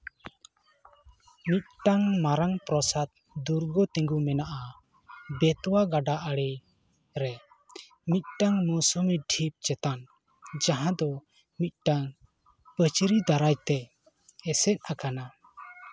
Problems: background conversations at intervals